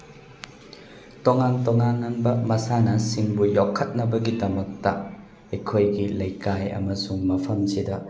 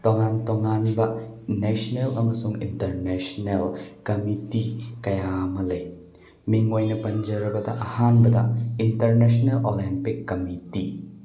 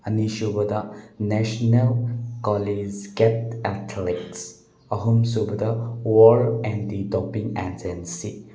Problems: constant background noise